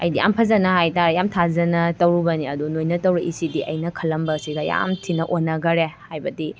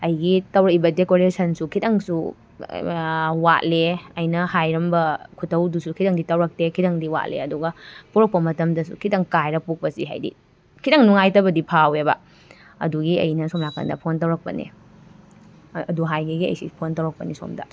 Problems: background sounds at intervals